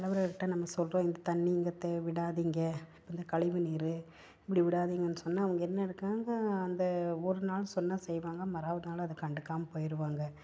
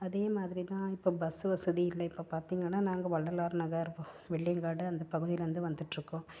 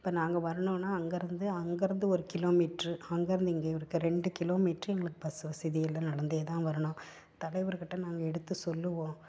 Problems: none marked